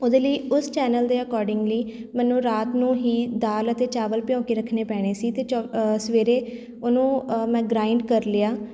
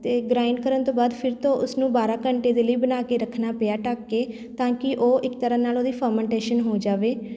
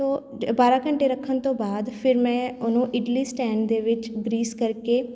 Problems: background sounds at intervals